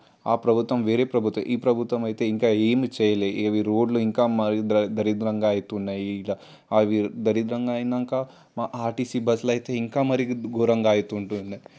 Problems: constant background noise